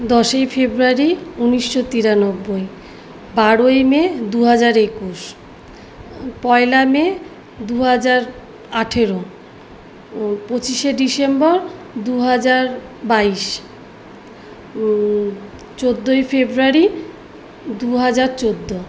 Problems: none marked